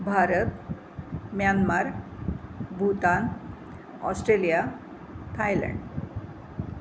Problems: constant background noise